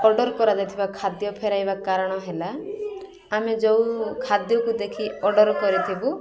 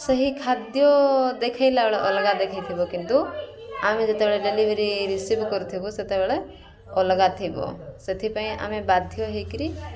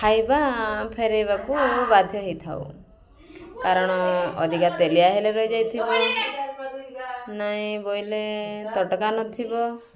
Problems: constant background noise, continuous background conversations